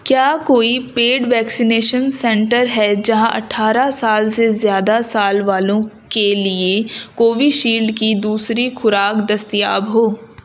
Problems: constant background noise